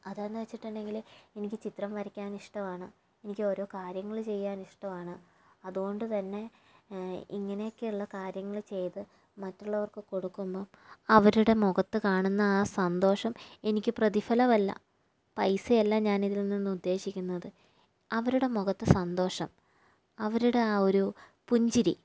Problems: low volume